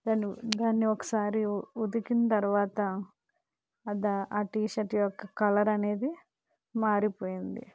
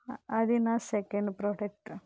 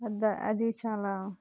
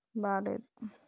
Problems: low volume